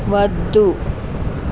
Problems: constant background noise